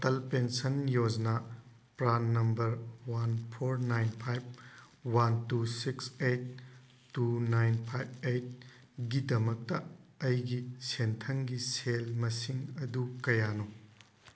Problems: constant background noise